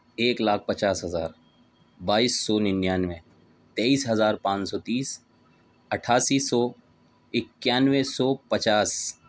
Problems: none marked